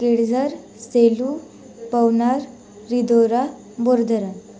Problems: none marked